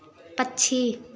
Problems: none marked